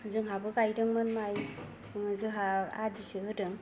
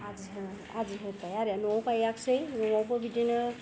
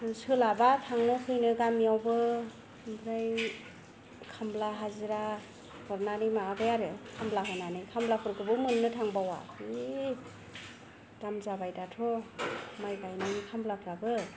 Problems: none marked